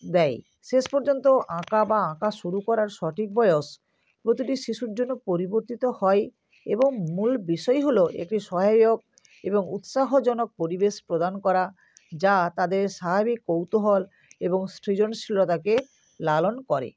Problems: constant background noise